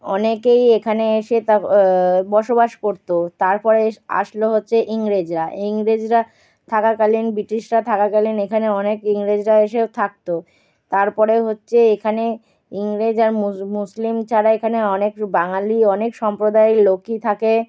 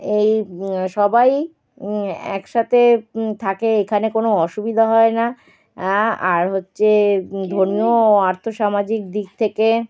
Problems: background sounds at intervals